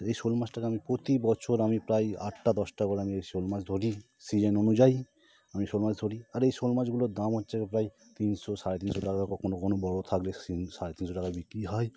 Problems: none marked